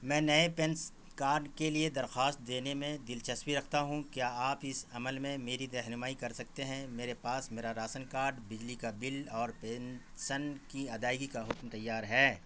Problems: constant background noise